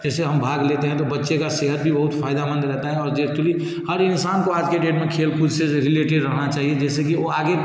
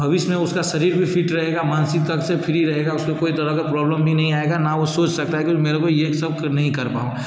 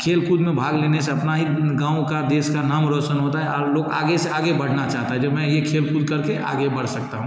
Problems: background sounds at intervals